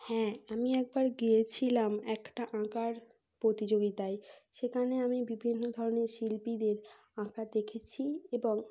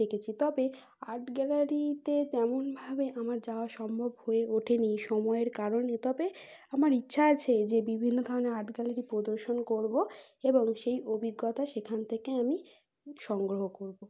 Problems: none marked